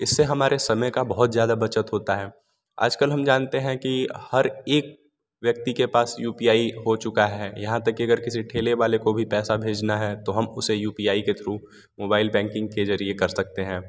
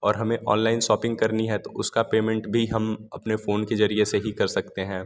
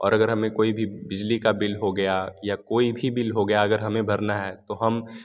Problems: none marked